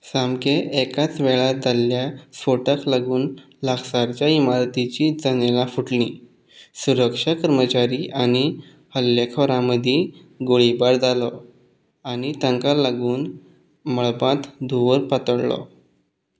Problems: background sounds at intervals